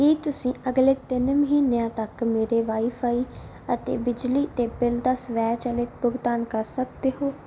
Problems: background sounds at intervals